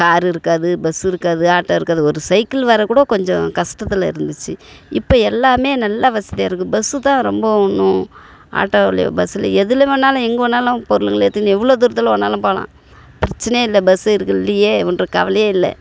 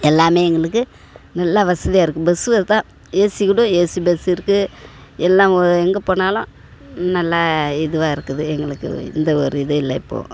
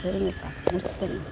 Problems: constant background noise